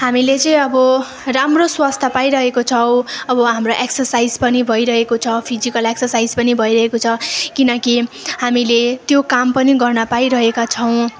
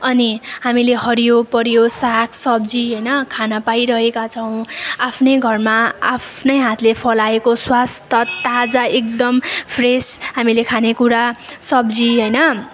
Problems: constant background noise